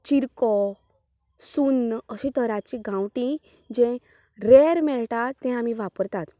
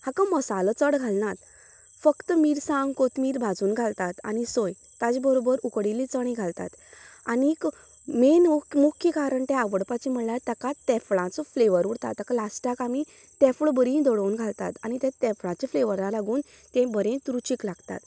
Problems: none marked